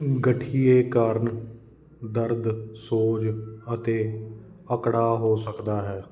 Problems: none marked